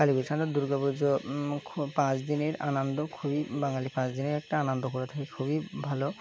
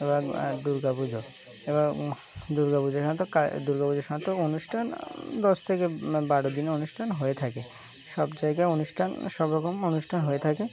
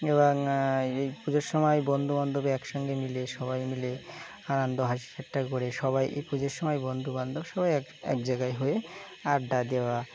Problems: background sounds at intervals